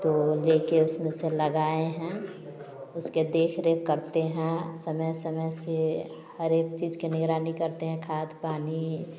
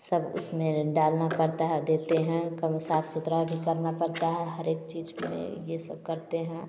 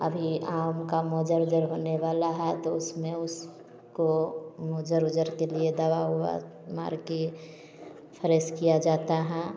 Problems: background sounds at intervals